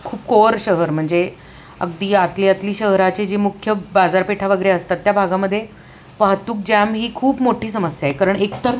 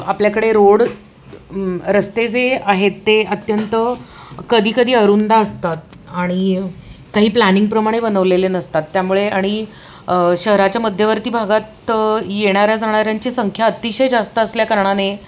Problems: constant background noise, background conversations at intervals